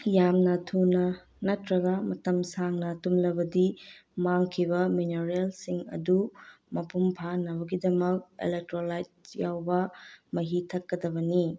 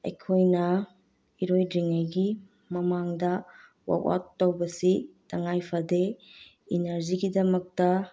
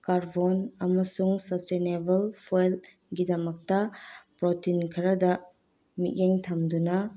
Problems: none marked